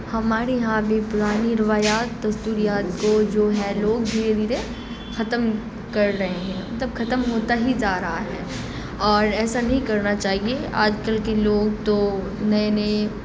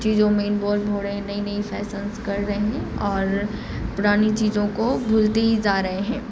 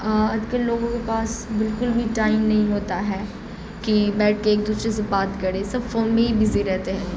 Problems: constant background noise